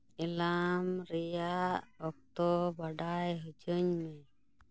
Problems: none marked